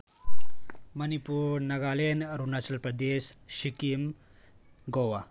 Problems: none marked